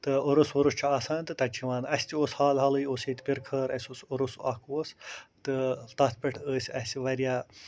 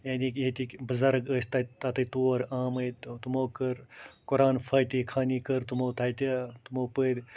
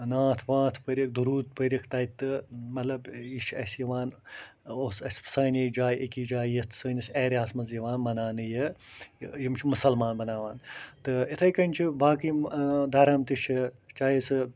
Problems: constant background noise